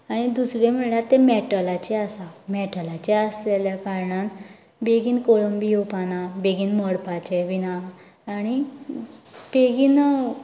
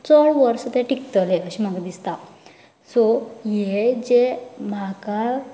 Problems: none marked